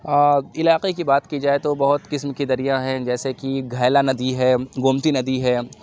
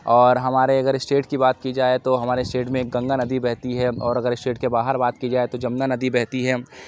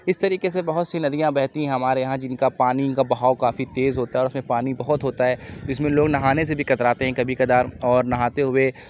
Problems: constant background noise